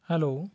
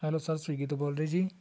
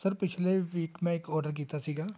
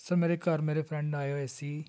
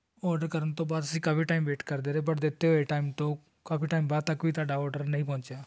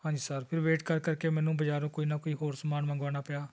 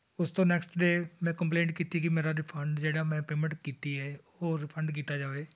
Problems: none marked